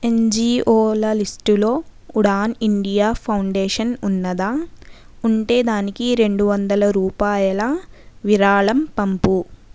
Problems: none marked